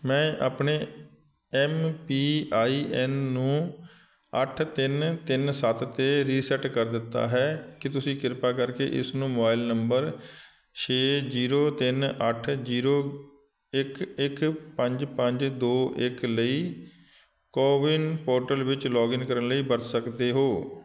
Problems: none marked